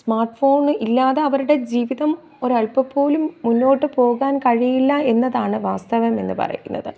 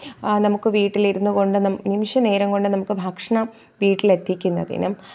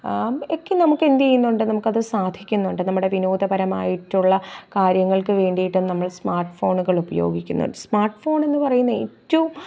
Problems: none marked